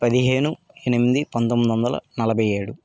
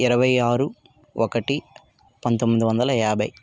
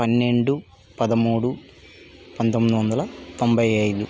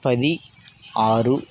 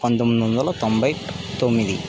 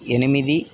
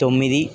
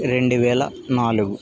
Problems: background sounds at intervals